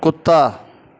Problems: background sounds at intervals